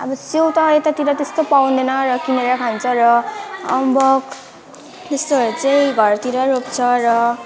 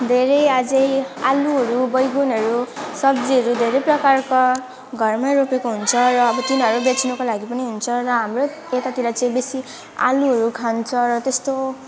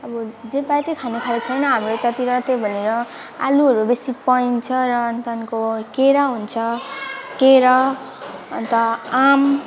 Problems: constant background noise